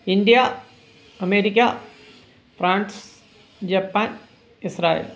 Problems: background sounds at intervals